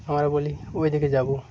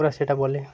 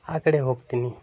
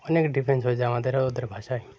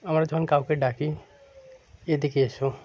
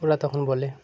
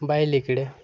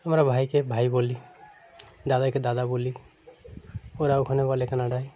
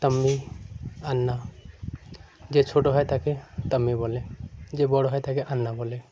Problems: constant background noise